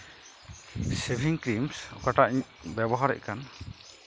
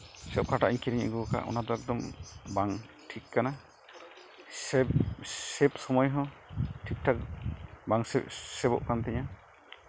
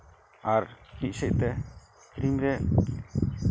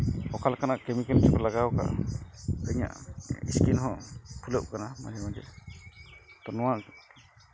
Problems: none marked